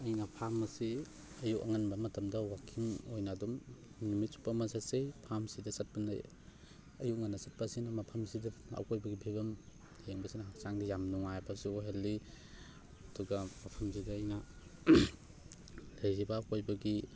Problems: none marked